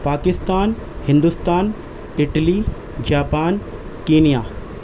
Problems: constant background noise